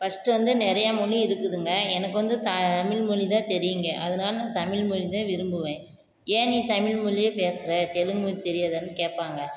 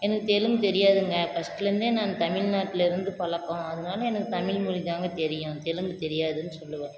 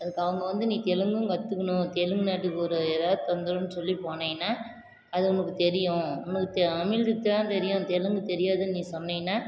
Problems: constant background noise